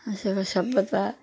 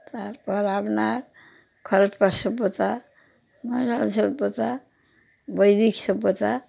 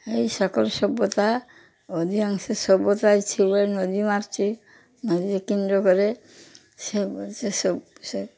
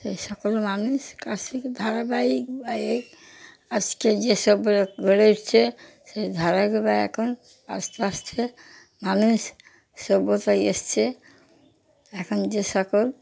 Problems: background sounds at intervals, background conversations at intervals